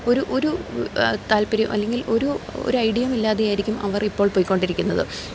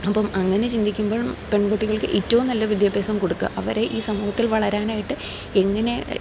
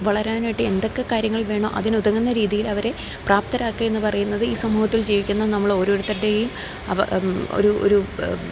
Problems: none marked